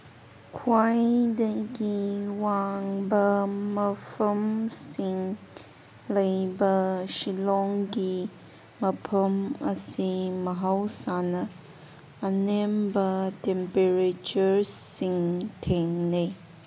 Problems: background sounds at intervals